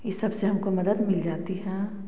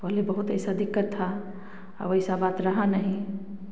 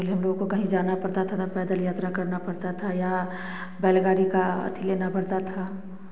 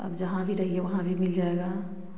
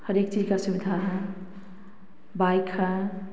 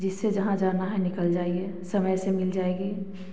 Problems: constant background noise